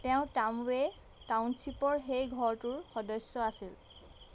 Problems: none marked